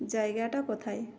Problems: none marked